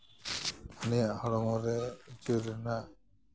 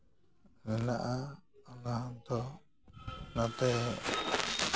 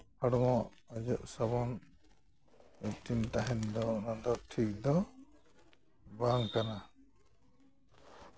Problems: background sounds at intervals